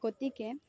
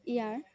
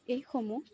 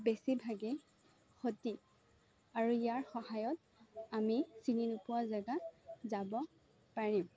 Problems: low volume